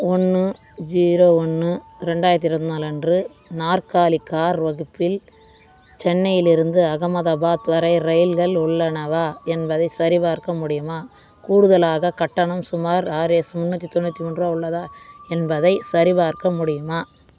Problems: constant background noise, continuous background conversations